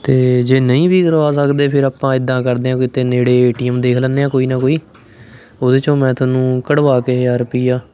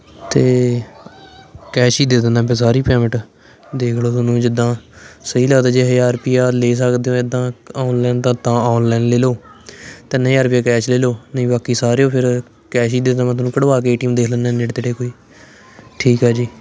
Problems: none marked